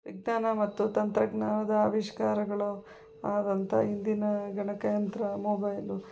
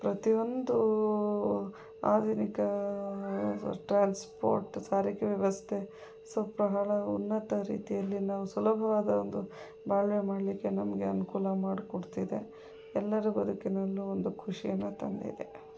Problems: background sounds at intervals